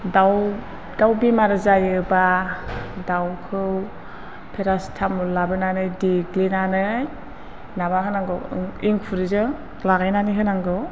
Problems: none marked